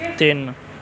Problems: constant background noise, continuous background conversations